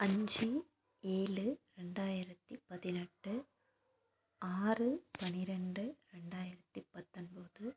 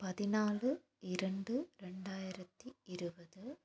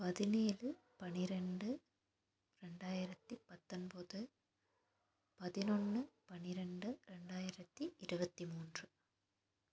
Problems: constant background noise